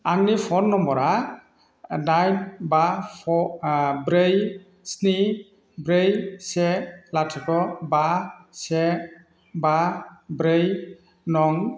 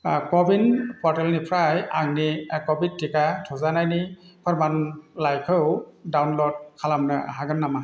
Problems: constant background noise